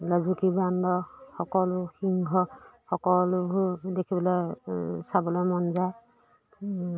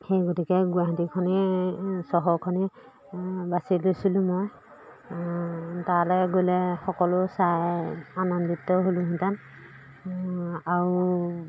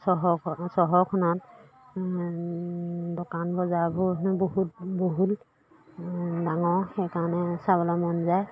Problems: background sounds at intervals